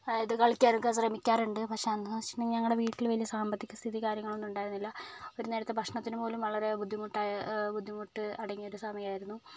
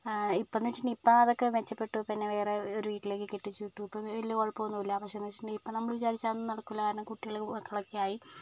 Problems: none marked